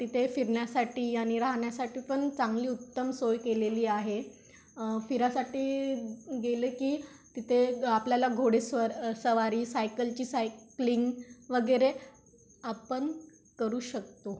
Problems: background sounds at intervals